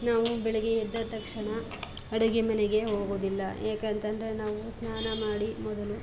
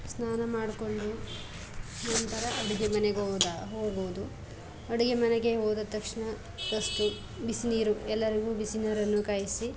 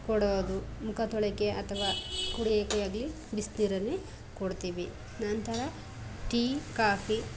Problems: background sounds at intervals